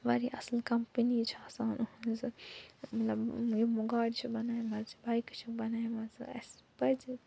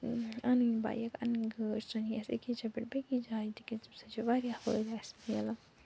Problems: none marked